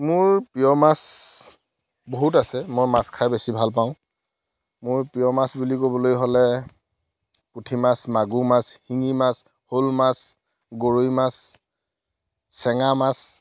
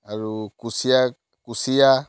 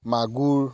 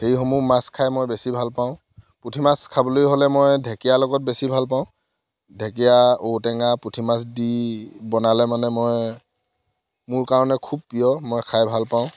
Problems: none marked